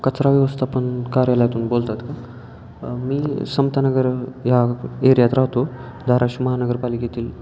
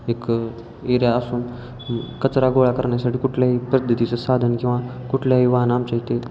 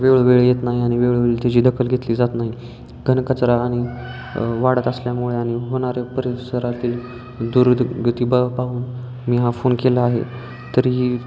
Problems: constant background noise, continuous background conversations